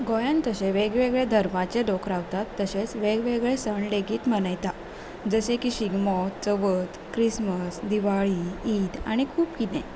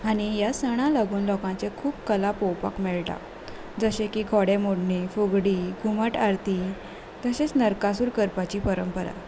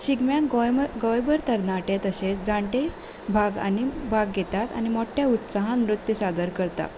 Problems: none marked